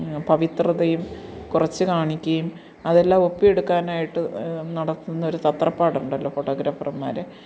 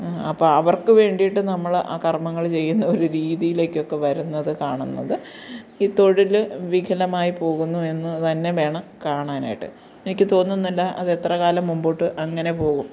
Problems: none marked